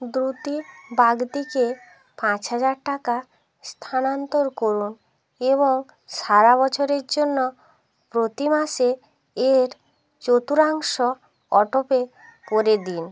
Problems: background sounds at intervals